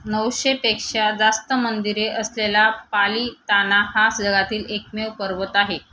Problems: constant background noise